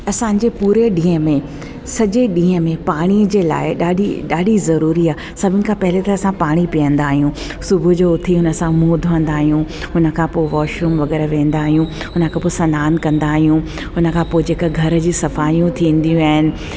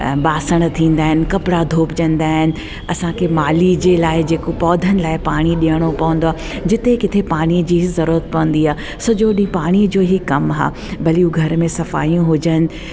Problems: constant background noise